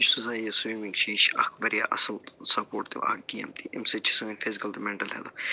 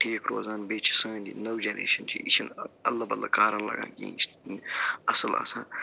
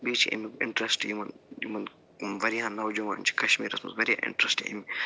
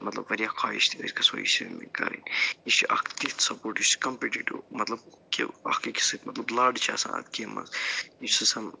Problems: constant background noise, low volume